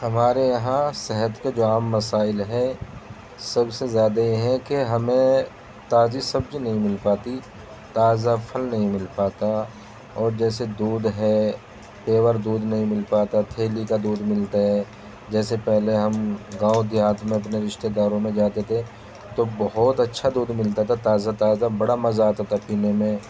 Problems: constant background noise